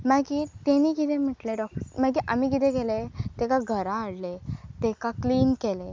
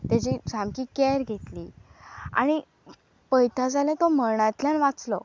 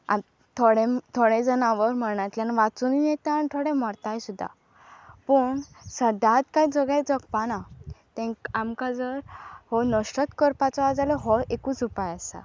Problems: constant background noise